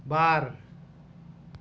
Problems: constant background noise